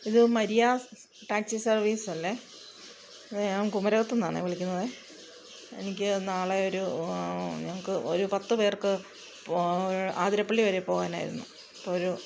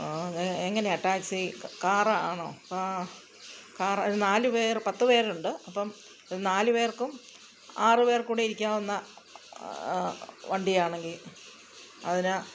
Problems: background sounds at intervals